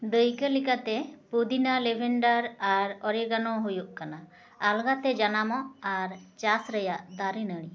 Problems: echo